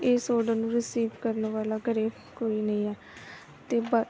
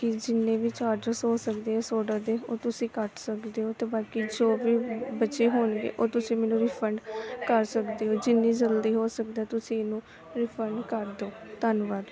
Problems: continuous background conversations